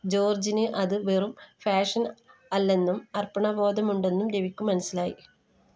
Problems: none marked